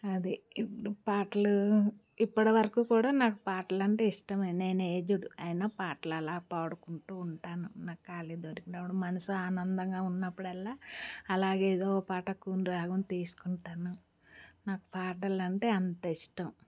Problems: background sounds at intervals